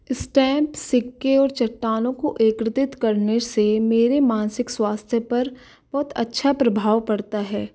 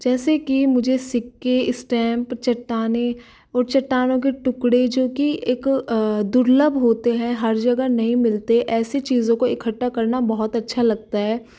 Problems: none marked